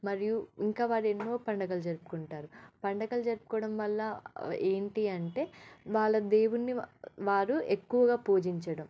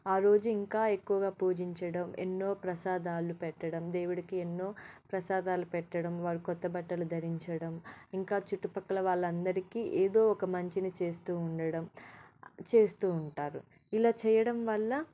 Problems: none marked